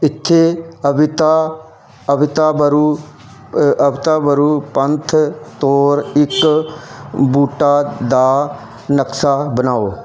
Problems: none marked